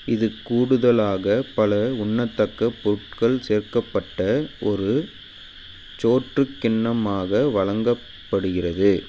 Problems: constant background noise